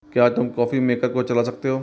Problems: none marked